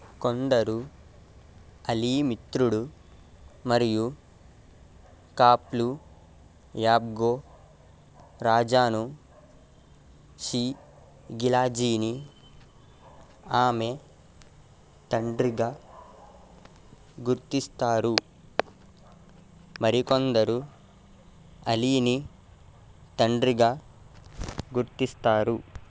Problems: constant background noise